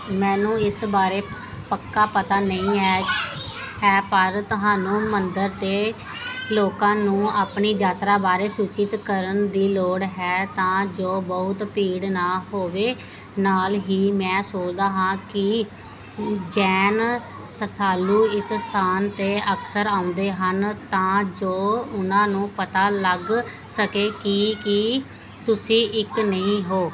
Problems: background sounds at intervals, background conversations at intervals